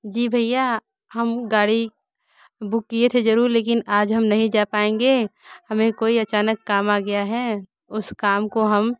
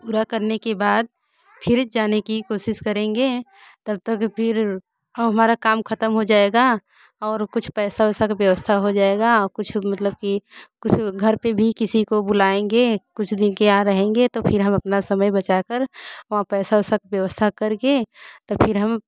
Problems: background sounds at intervals